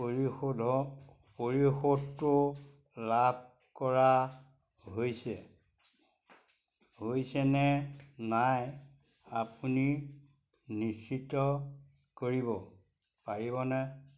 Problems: none marked